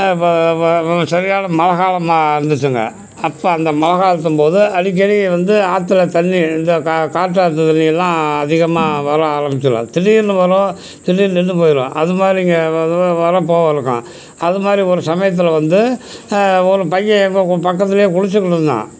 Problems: background sounds at intervals